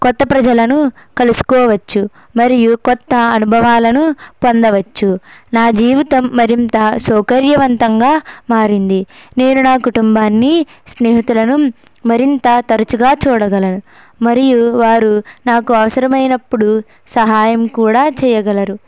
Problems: background sounds at intervals